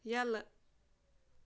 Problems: none marked